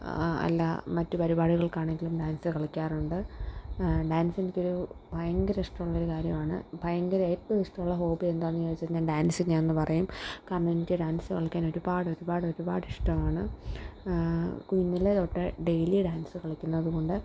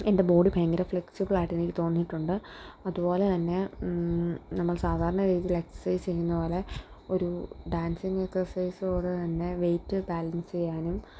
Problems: none marked